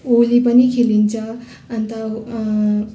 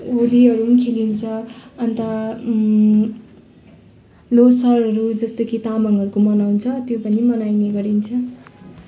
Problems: constant background noise, background conversations at intervals